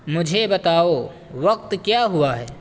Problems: constant background noise